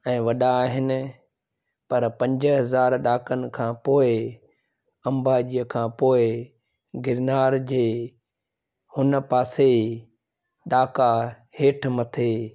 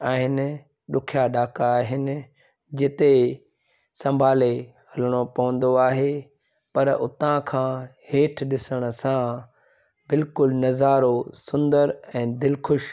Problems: background sounds at intervals